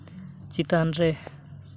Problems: constant background noise